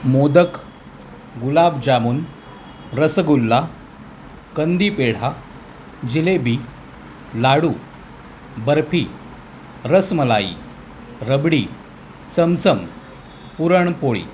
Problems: constant background noise, background conversations at intervals